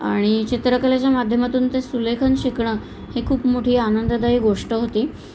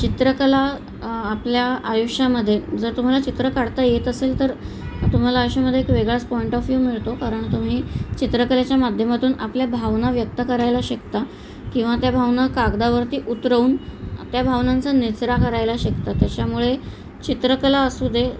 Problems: none marked